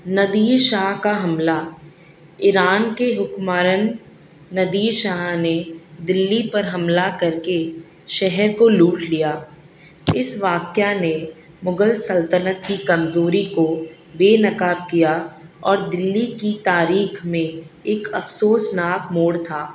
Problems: none marked